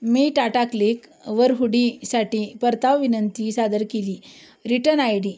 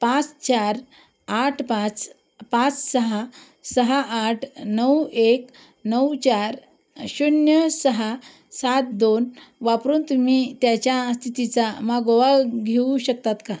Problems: background sounds at intervals